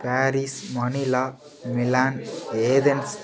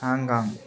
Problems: background sounds at intervals